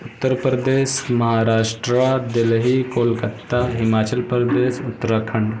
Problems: constant background noise